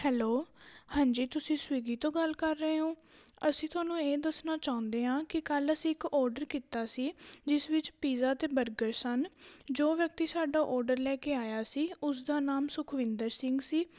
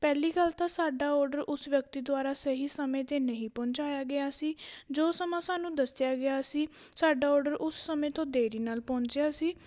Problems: background sounds at intervals